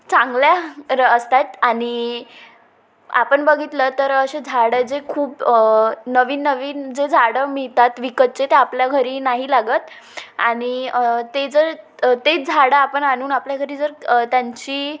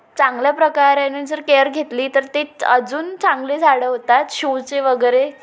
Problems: constant background noise, echo